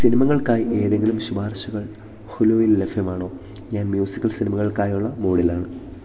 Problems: low volume